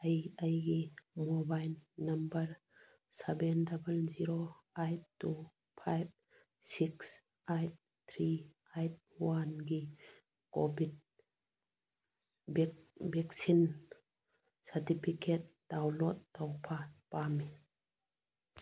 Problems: none marked